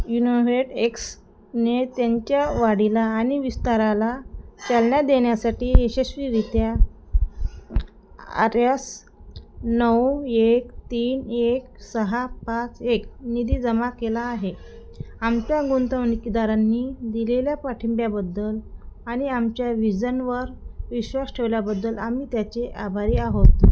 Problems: none marked